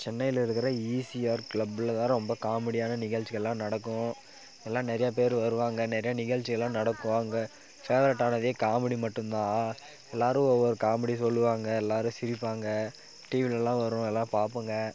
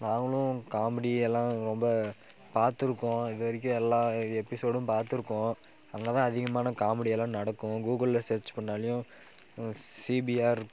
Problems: background sounds at intervals